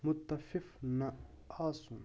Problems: none marked